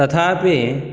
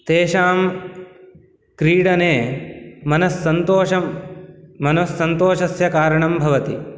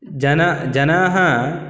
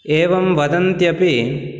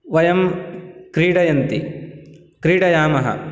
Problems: none marked